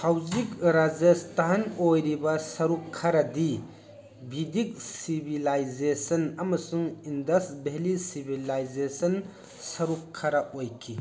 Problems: constant background noise, background conversations at intervals